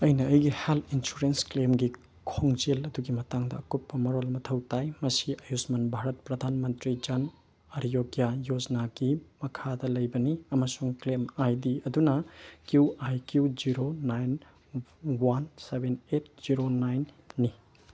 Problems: none marked